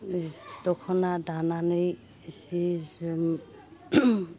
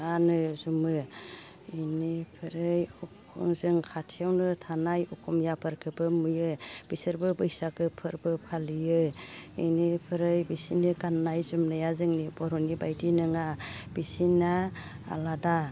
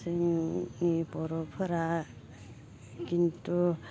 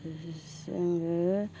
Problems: constant background noise